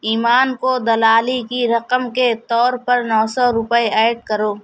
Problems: none marked